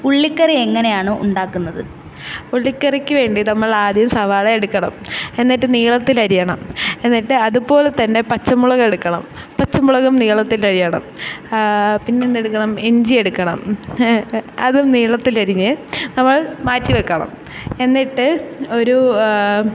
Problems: background sounds at intervals